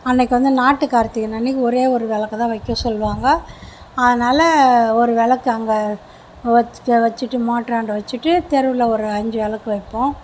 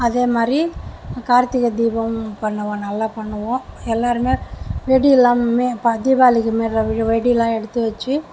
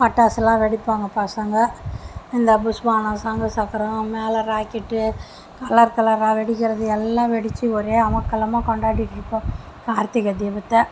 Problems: background sounds at intervals